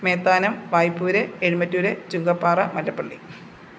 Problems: constant background noise